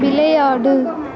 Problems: background conversations at intervals